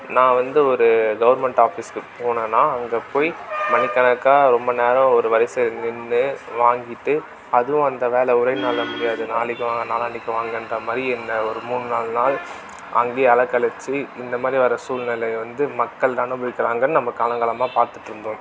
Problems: background sounds at intervals